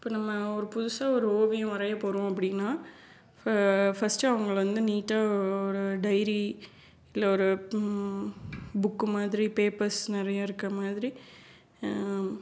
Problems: none marked